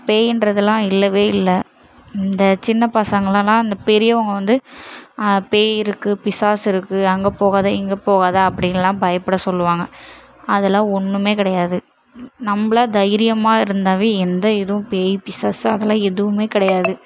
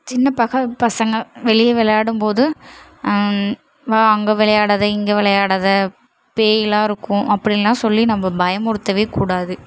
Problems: none marked